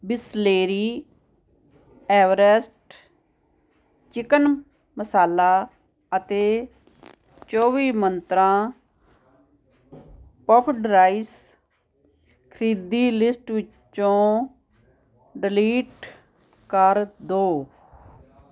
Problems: constant background noise